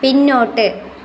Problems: none marked